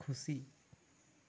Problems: low volume